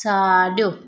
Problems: background sounds at intervals